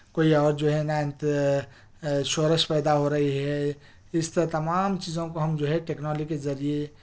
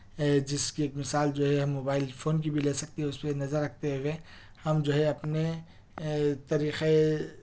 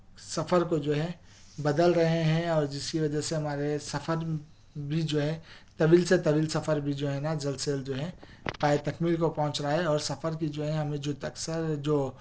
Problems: background sounds at intervals